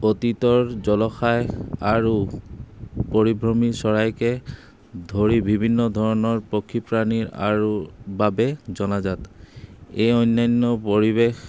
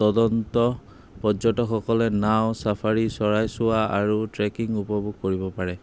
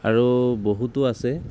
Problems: constant background noise